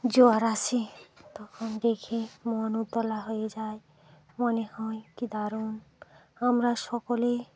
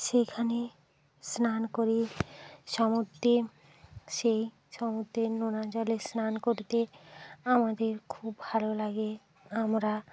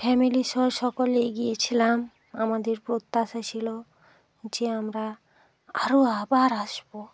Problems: constant background noise